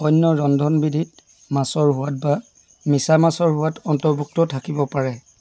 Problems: constant background noise